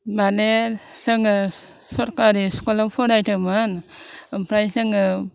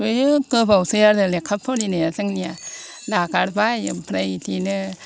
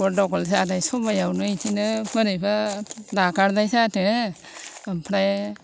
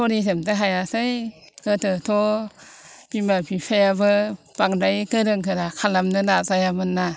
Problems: constant background noise